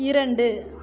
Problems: continuous background conversations